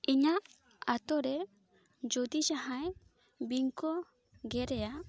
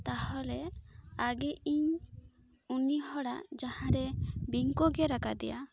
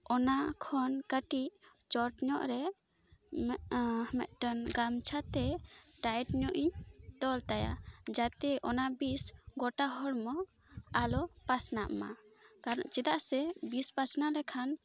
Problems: none marked